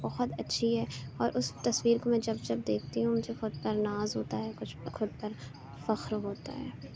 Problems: constant background noise, low volume